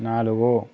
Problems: constant background noise